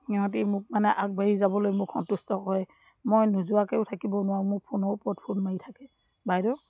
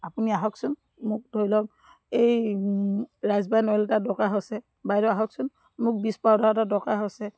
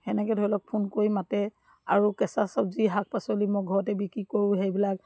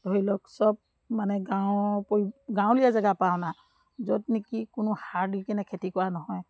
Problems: background sounds at intervals